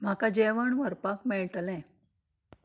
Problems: low volume